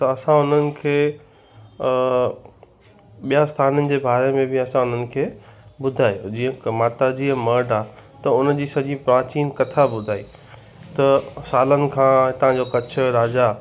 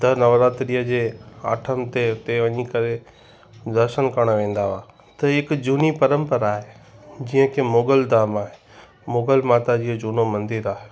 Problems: constant background noise, echo